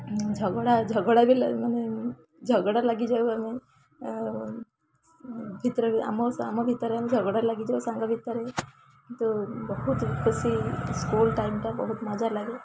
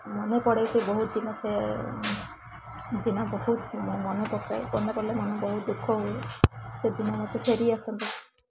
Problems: constant background noise, continuous background conversations